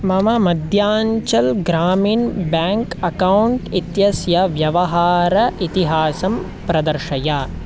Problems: constant background noise